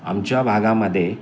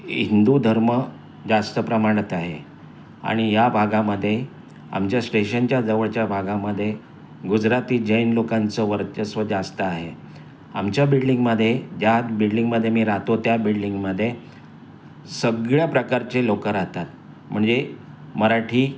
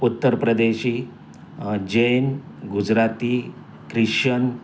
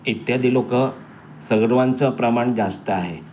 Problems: constant background noise, continuous background conversations